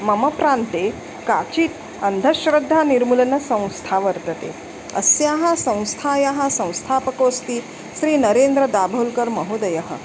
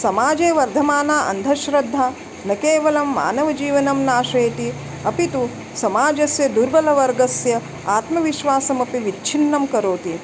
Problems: constant background noise